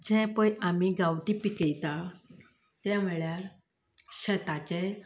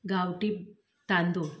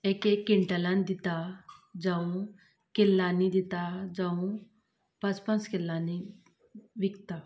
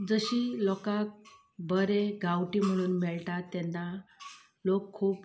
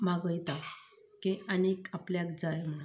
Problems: low volume